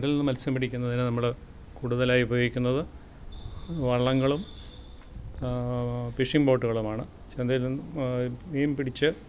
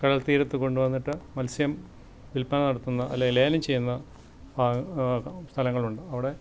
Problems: none marked